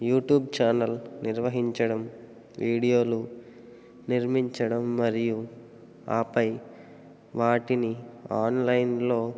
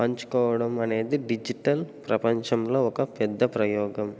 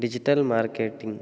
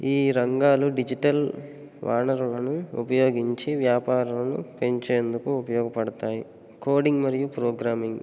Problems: none marked